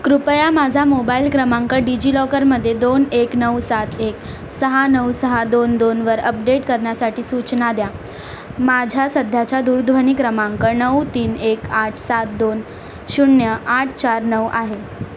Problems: background sounds at intervals